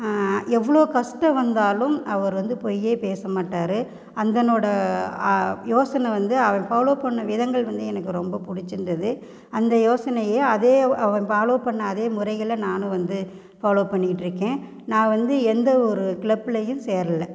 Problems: none marked